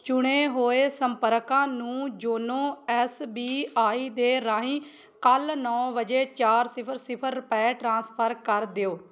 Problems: background sounds at intervals